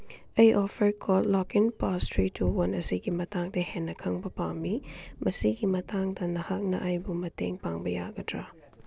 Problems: background sounds at intervals